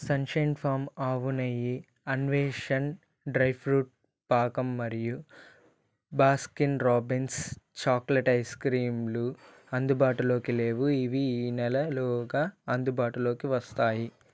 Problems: none marked